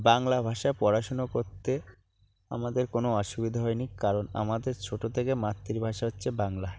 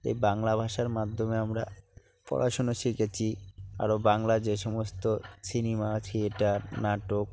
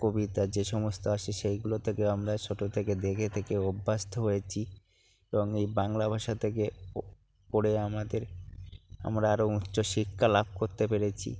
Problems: low volume